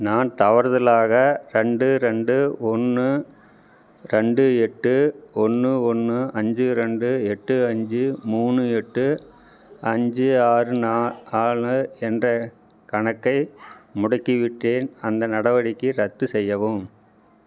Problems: none marked